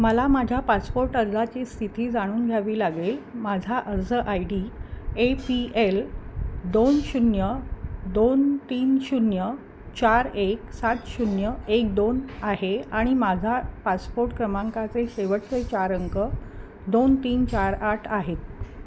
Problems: none marked